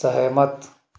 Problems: constant background noise